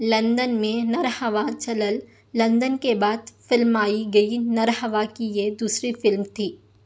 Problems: none marked